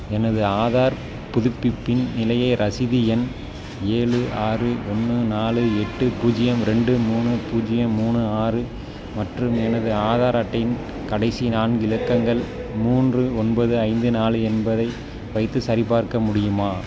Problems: constant background noise